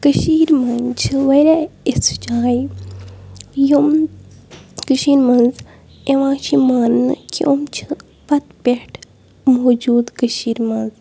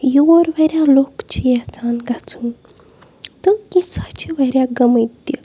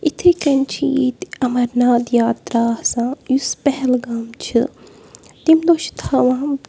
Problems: background sounds at intervals